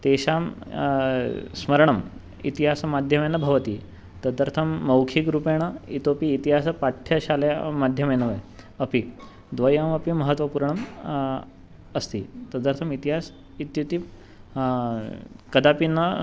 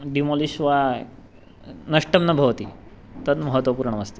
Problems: background sounds at intervals